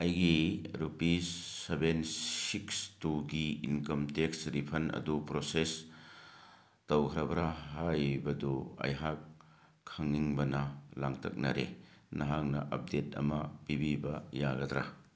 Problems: none marked